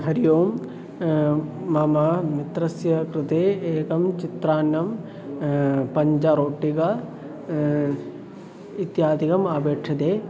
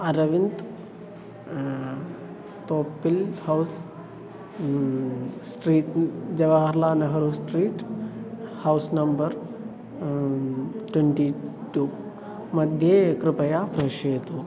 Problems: constant background noise, continuous background conversations